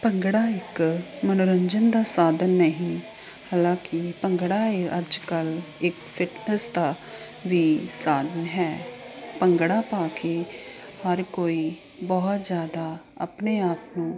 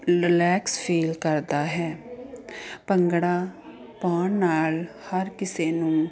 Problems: continuous background conversations